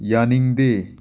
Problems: none marked